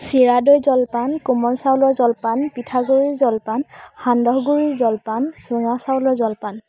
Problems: constant background noise, background conversations at intervals